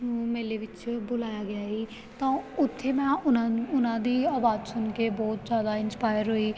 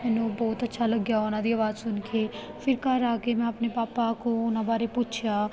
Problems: background conversations at intervals